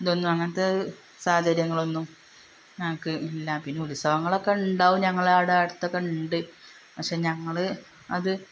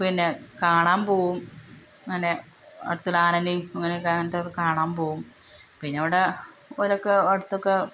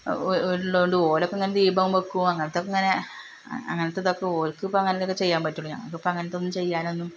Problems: constant background noise